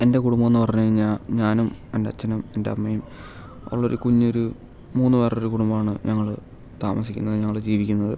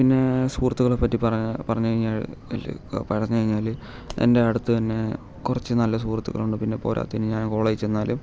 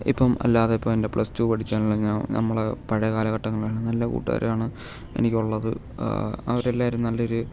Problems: low volume